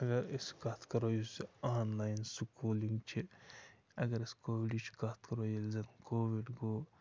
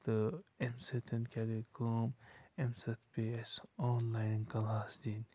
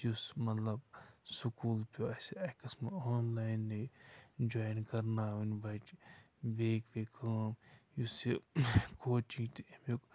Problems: constant background noise, low volume